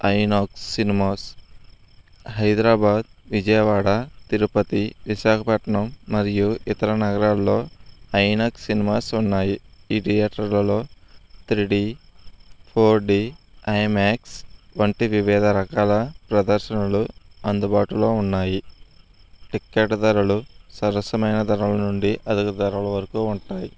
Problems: constant background noise